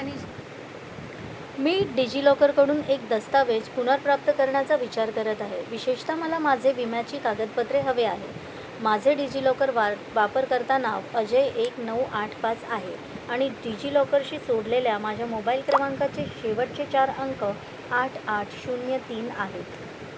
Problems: constant background noise, background conversations at intervals